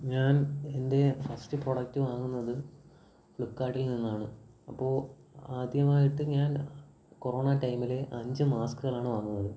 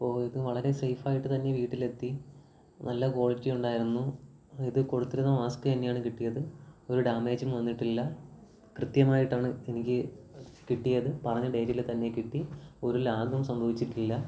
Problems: none marked